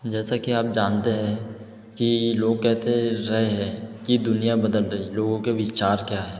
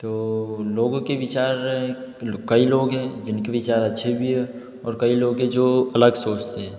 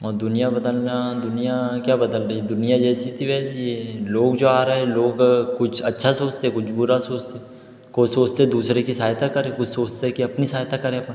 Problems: none marked